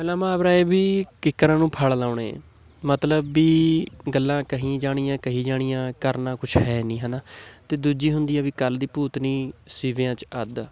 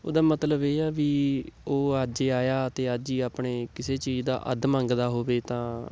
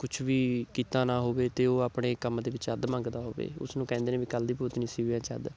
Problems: none marked